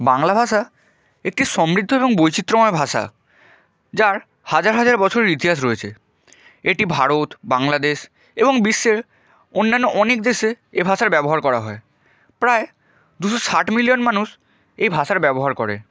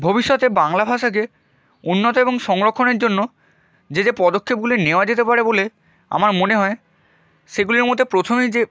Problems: none marked